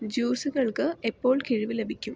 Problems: none marked